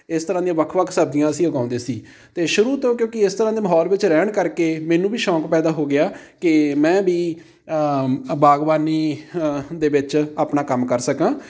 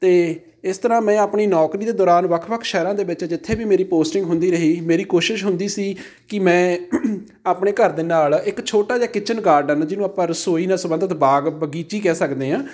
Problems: background conversations at intervals